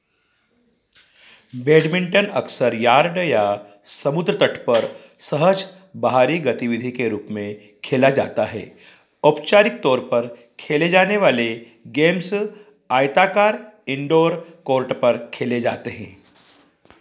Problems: background sounds at intervals